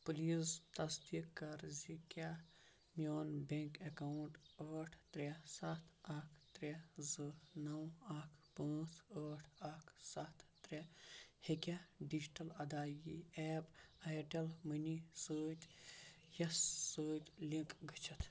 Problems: none marked